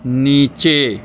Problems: none marked